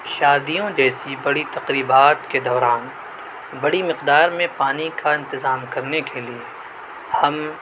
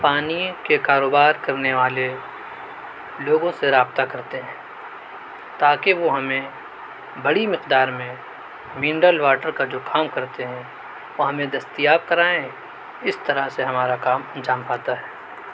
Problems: none marked